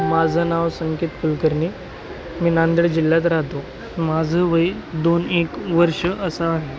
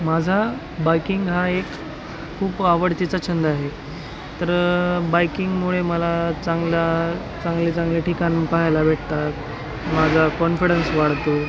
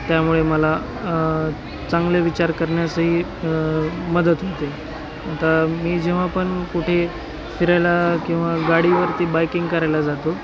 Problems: constant background noise, continuous background conversations